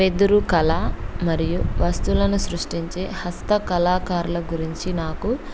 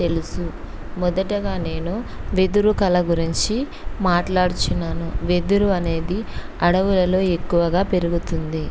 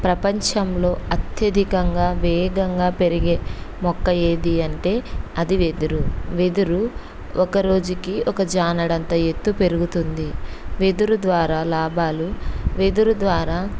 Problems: constant background noise